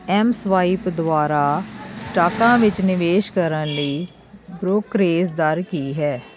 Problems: constant background noise, background conversations at intervals